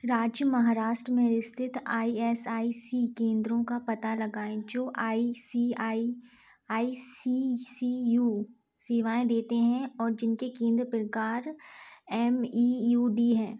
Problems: none marked